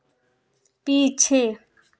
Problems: none marked